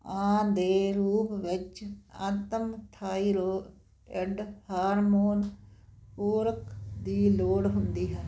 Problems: constant background noise